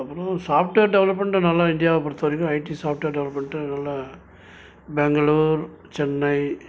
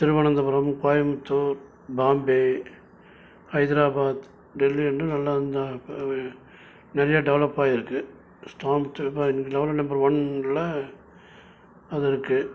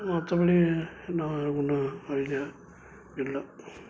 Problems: constant background noise